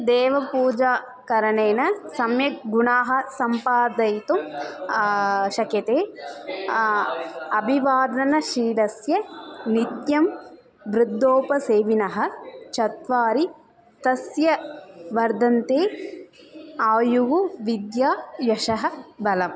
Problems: constant background noise, continuous background conversations